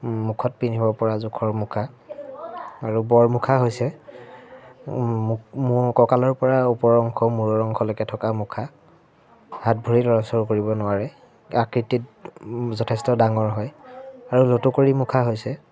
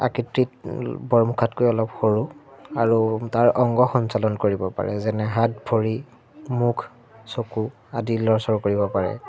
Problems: none marked